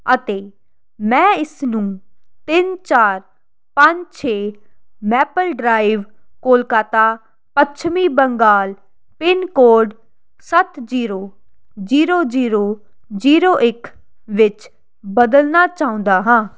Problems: constant background noise